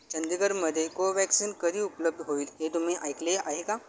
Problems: none marked